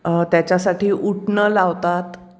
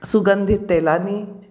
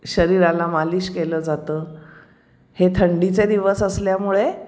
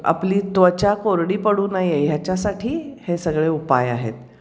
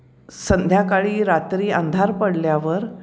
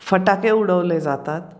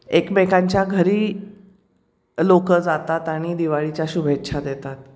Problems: background sounds at intervals